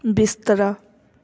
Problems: none marked